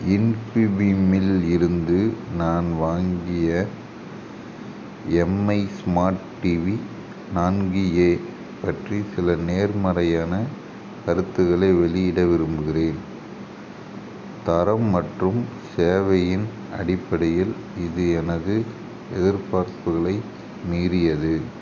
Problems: constant background noise